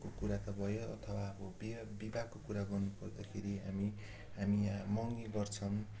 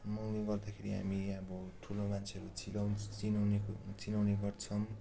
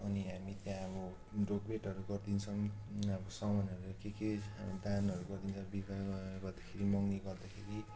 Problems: constant background noise